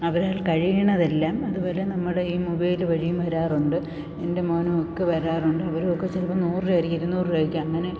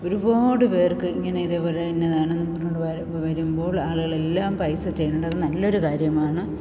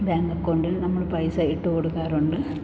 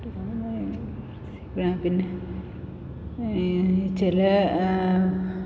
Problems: constant background noise